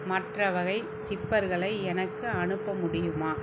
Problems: low volume